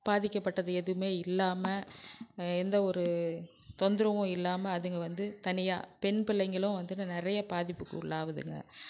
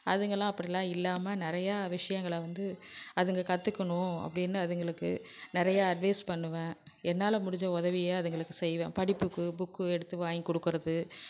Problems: background sounds at intervals